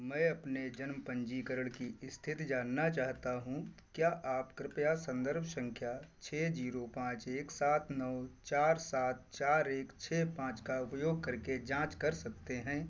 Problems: constant background noise